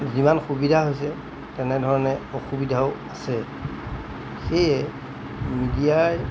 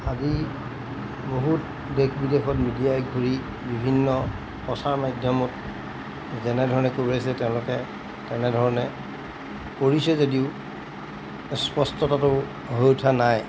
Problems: constant background noise